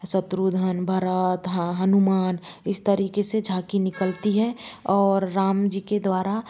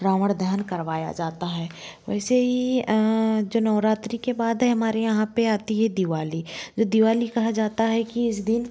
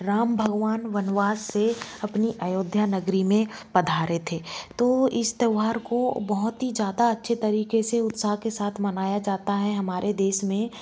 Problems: constant background noise